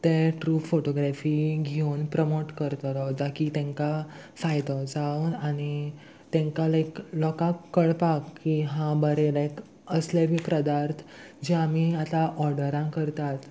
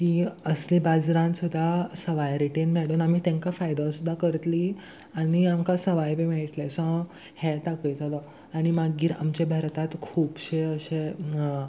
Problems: none marked